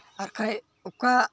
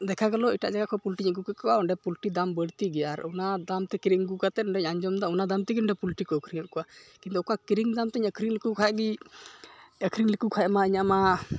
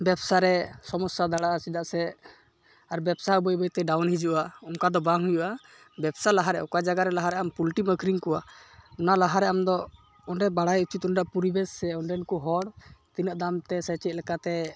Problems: none marked